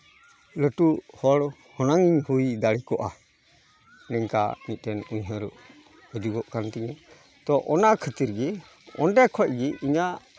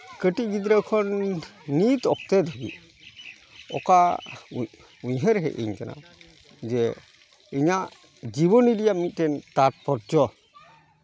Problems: background sounds at intervals